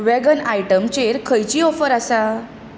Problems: constant background noise